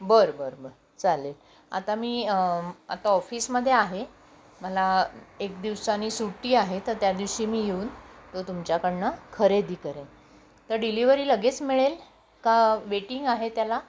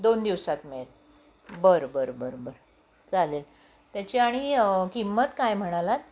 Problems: constant background noise